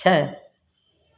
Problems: background sounds at intervals